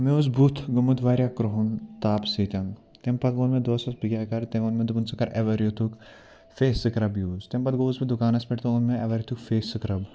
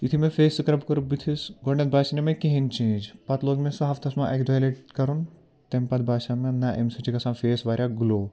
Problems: background sounds at intervals